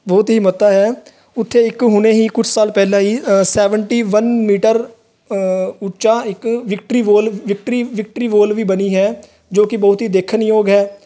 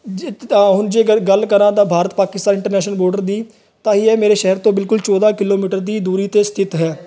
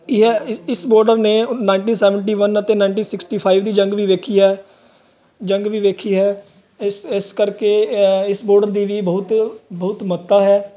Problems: constant background noise